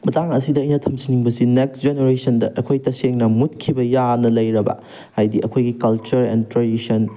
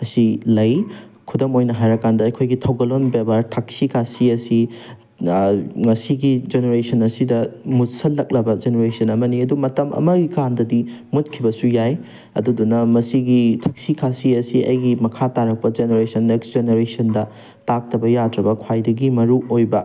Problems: none marked